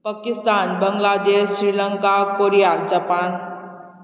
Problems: none marked